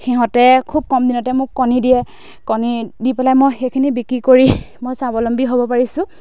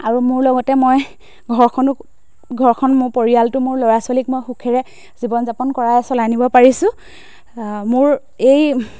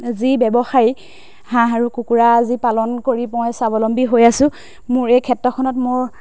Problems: background sounds at intervals